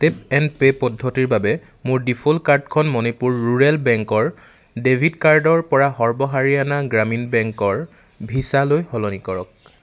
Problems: none marked